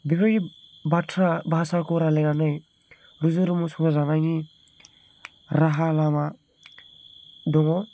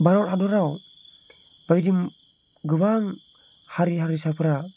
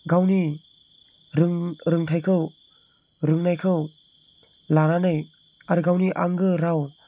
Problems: none marked